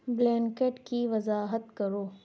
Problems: background sounds at intervals